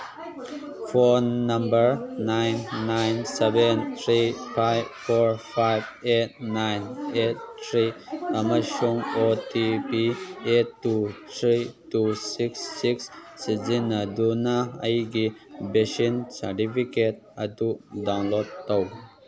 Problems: background conversations at intervals